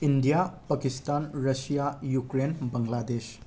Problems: none marked